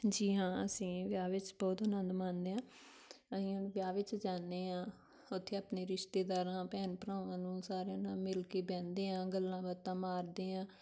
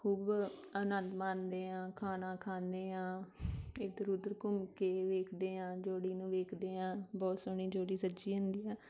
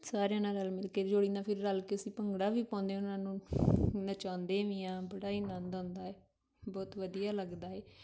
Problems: background sounds at intervals